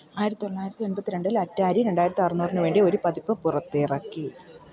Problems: none marked